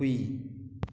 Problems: none marked